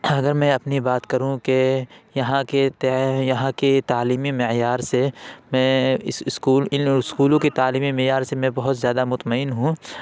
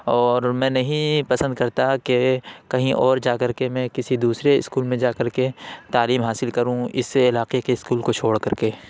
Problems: background sounds at intervals